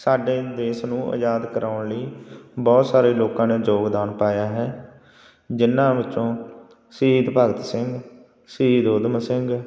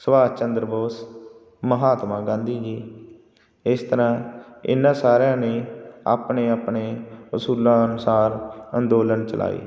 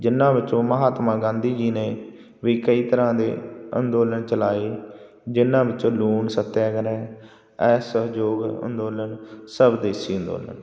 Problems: constant background noise